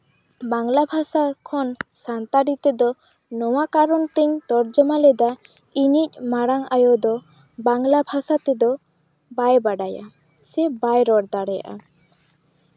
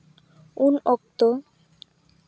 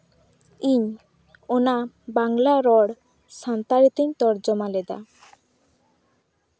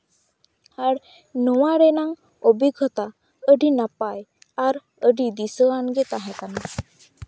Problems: background sounds at intervals